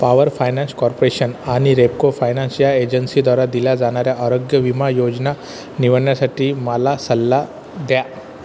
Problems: constant background noise